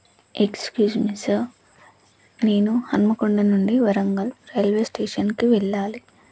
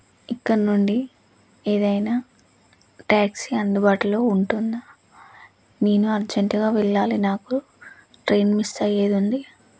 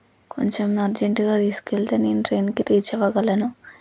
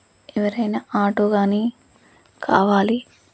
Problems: low volume